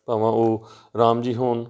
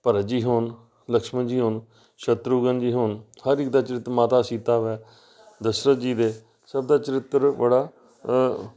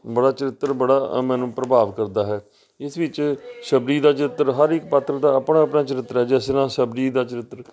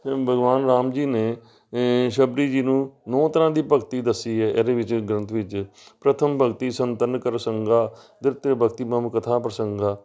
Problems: none marked